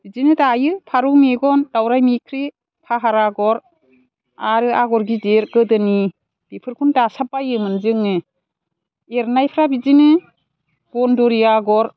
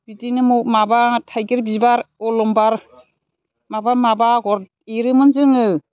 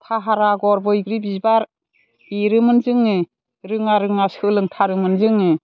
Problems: none marked